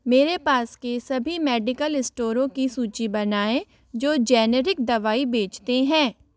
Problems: background sounds at intervals